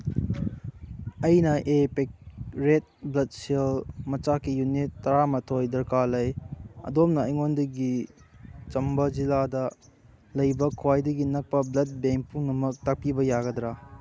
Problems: background sounds at intervals